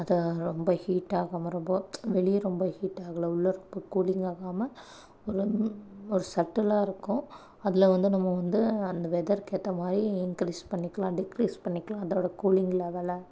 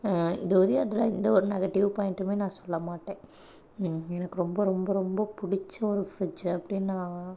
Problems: none marked